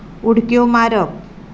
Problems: constant background noise